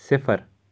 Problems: background sounds at intervals